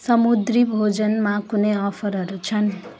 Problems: constant background noise